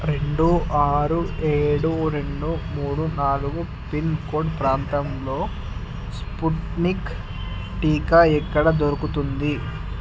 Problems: constant background noise